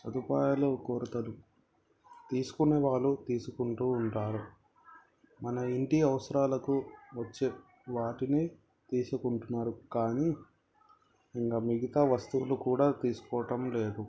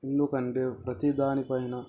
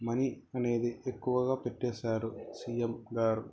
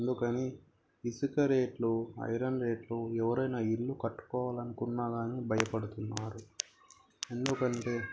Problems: background conversations at intervals, low volume